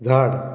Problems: background sounds at intervals